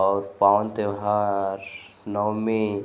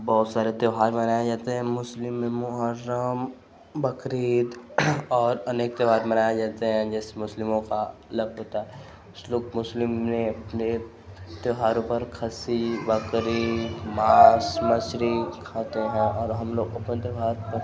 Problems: constant background noise